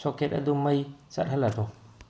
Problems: low volume